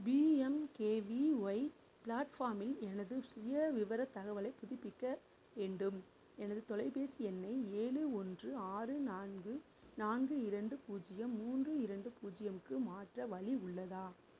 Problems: low volume